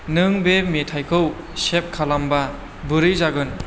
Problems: constant background noise